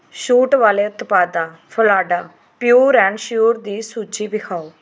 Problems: background sounds at intervals